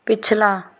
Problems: none marked